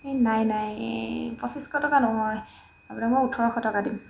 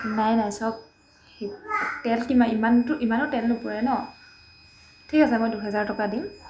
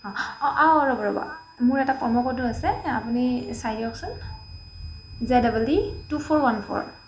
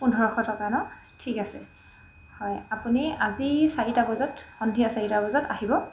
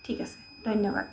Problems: background sounds at intervals, background conversations at intervals